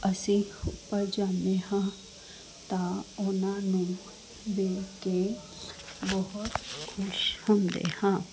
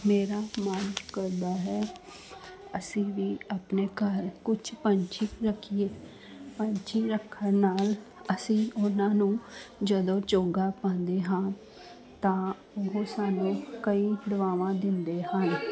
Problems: constant background noise